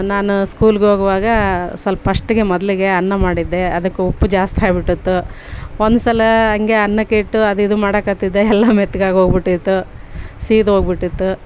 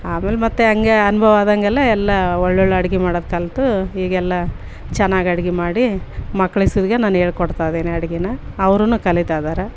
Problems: background sounds at intervals